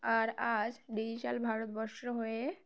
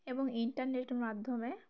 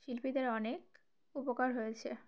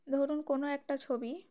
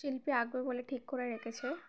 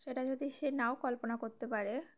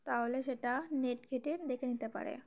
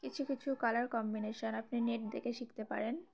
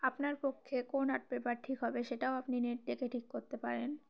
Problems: constant background noise, background conversations at intervals